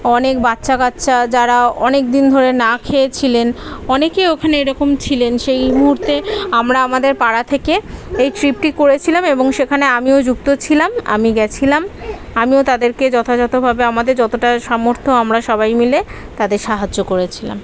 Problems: none marked